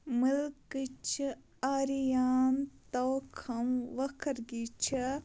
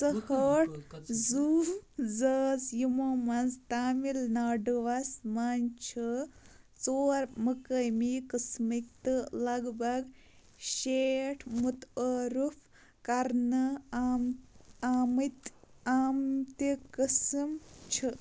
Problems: constant background noise